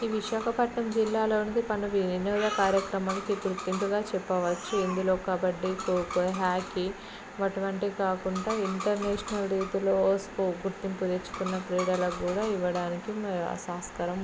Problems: constant background noise, background conversations at intervals